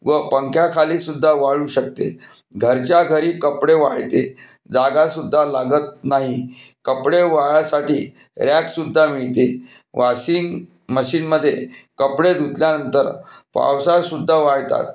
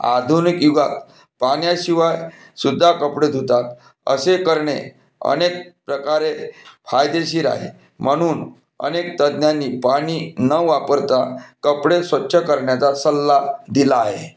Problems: background sounds at intervals